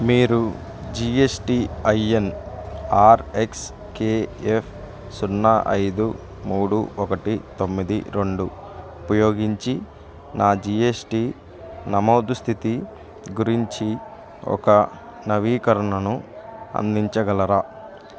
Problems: low volume